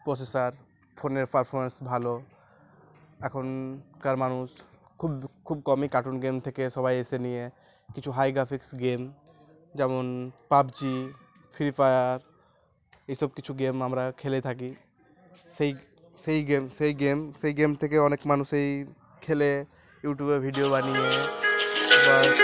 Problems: background sounds at intervals